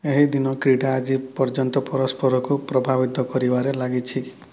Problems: none marked